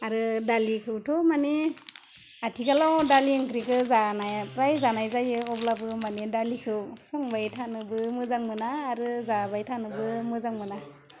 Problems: constant background noise